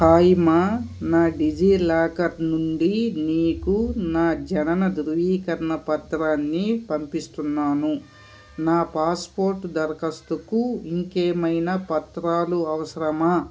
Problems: none marked